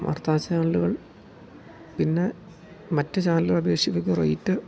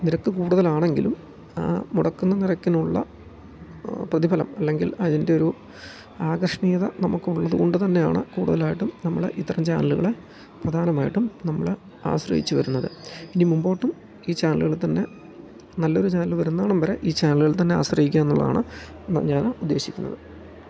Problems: none marked